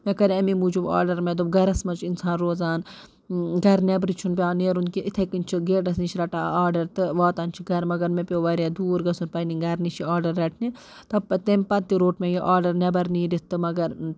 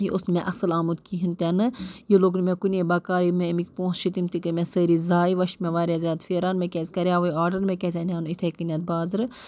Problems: constant background noise